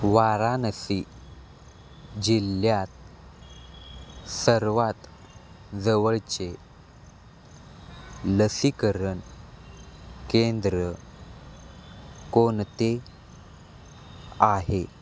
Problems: constant background noise, background conversations at intervals